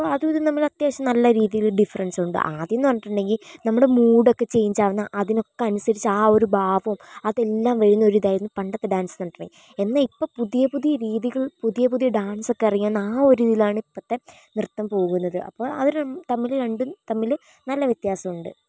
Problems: none marked